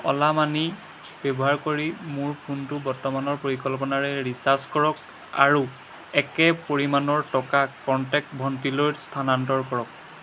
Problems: none marked